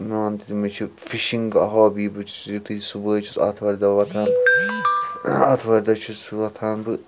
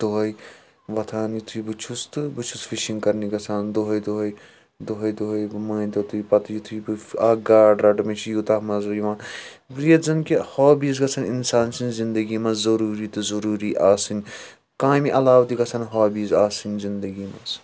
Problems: constant background noise